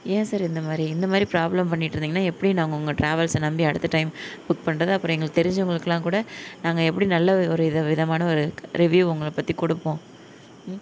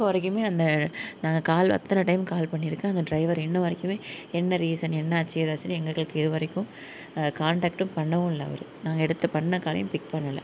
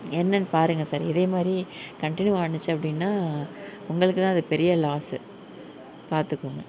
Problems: none marked